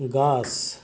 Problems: constant background noise, background conversations at intervals